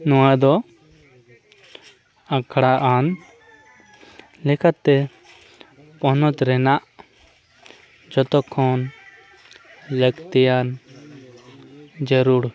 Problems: background conversations at intervals